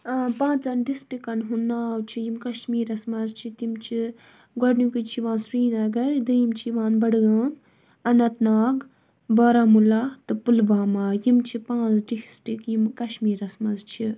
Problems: background sounds at intervals